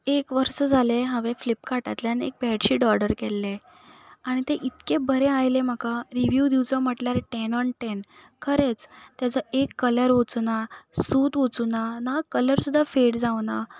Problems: none marked